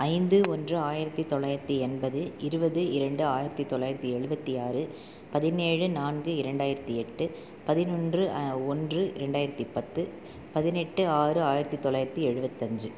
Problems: none marked